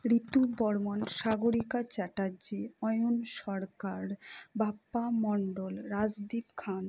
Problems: none marked